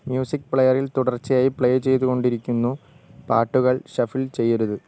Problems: none marked